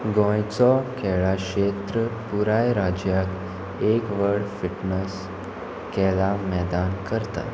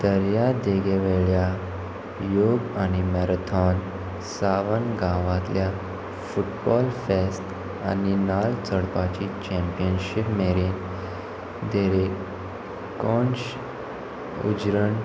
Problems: constant background noise